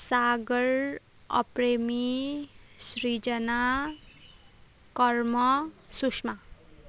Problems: none marked